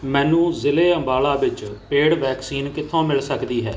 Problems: background sounds at intervals